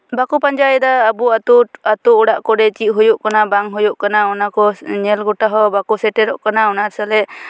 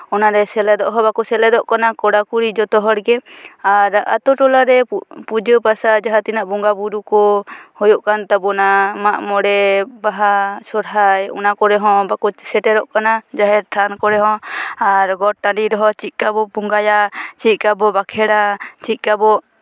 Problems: none marked